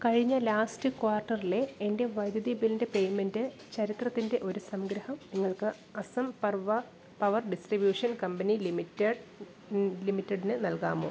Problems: background sounds at intervals